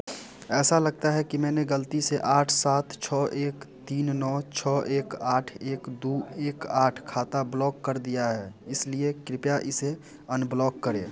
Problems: none marked